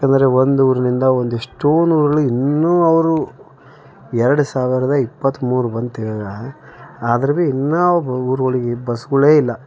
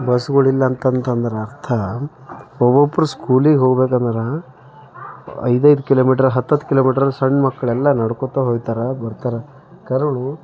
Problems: none marked